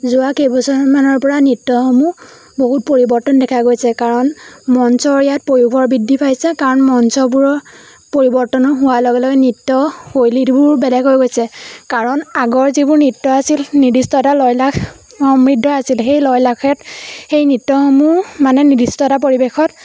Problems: background sounds at intervals